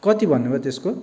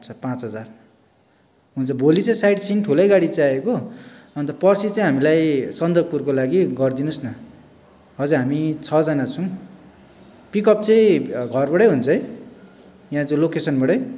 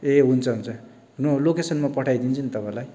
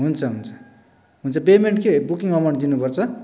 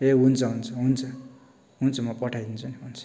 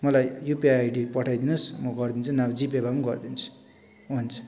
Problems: background sounds at intervals